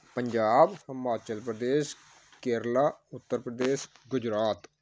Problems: none marked